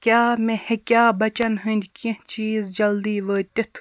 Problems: constant background noise